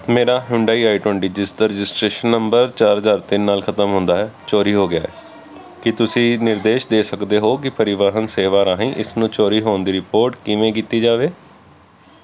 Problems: constant background noise